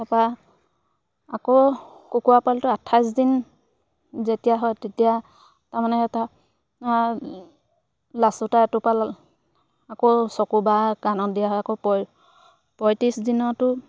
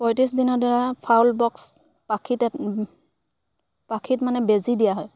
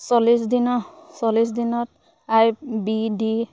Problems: background sounds at intervals